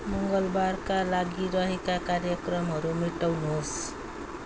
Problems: background sounds at intervals